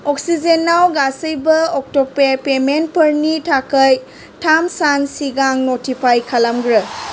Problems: constant background noise